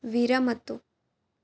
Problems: none marked